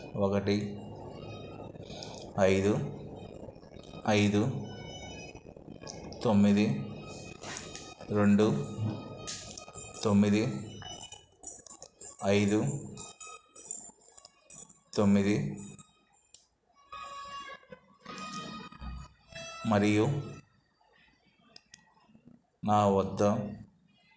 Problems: background sounds at intervals